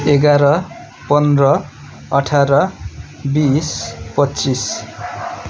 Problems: none marked